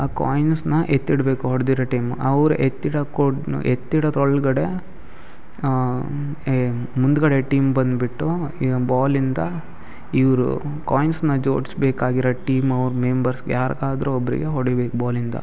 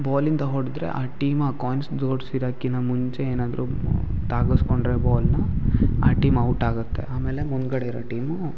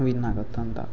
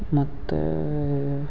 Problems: none marked